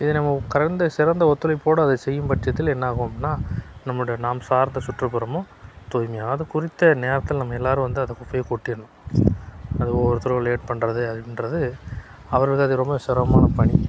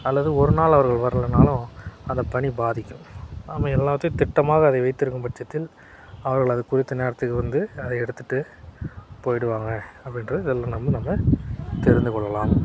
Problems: constant background noise